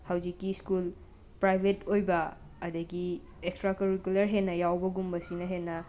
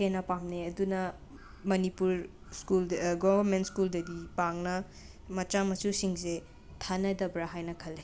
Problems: background sounds at intervals